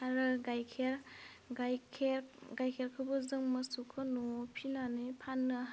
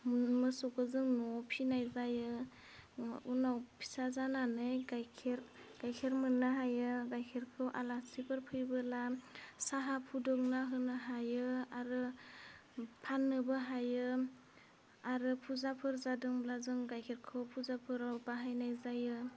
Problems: low volume